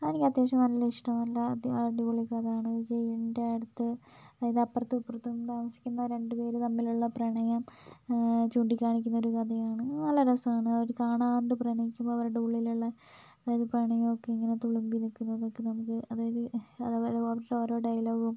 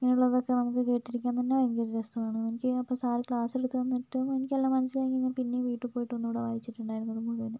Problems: low volume